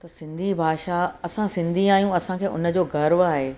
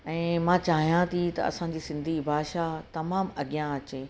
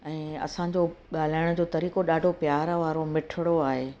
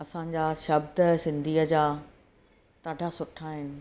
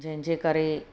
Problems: constant background noise